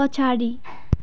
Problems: background sounds at intervals